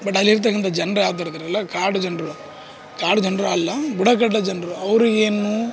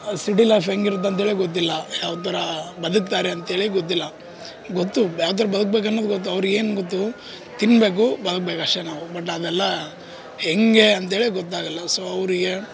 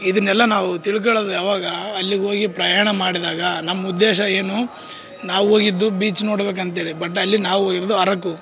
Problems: background sounds at intervals